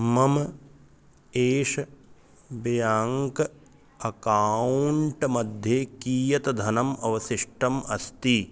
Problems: constant background noise